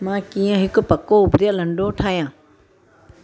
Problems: constant background noise, low volume